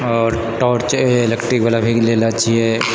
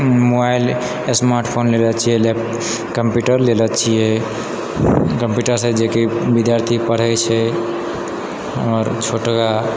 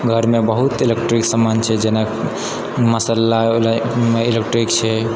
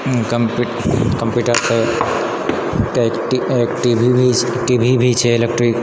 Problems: none marked